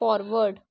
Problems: none marked